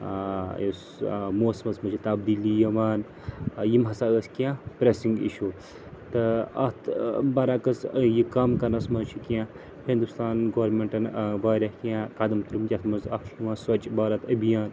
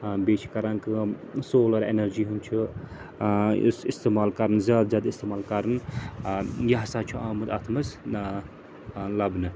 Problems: constant background noise